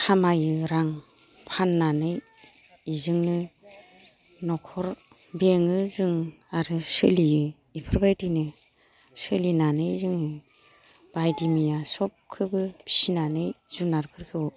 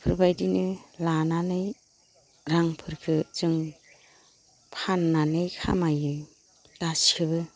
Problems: none marked